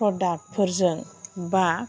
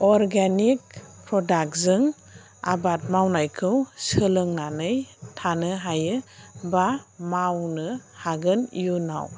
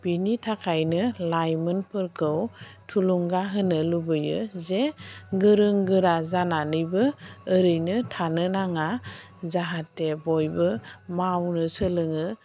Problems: none marked